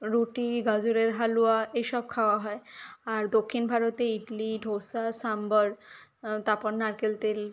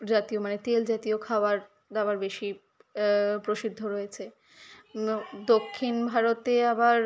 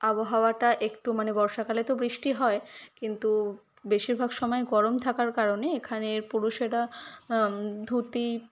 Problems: background sounds at intervals, background conversations at intervals